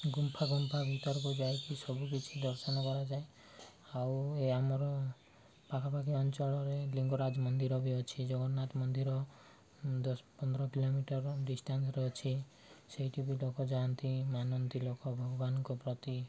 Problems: background sounds at intervals